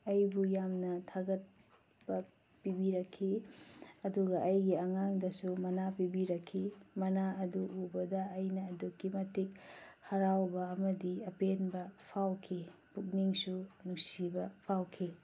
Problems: background sounds at intervals, low volume